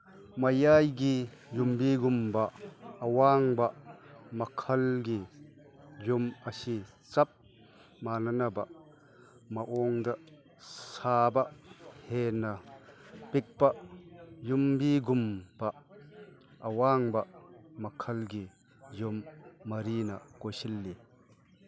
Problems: background sounds at intervals, background conversations at intervals